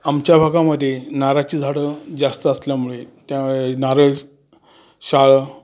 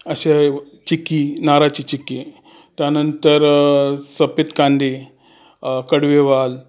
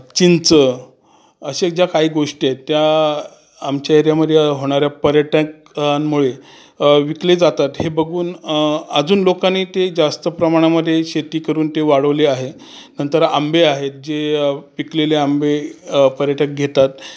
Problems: constant background noise, background conversations at intervals